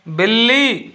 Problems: none marked